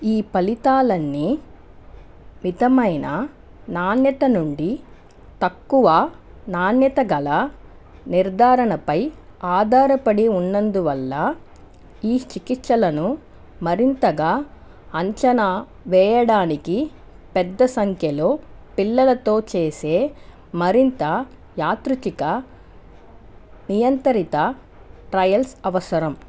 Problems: constant background noise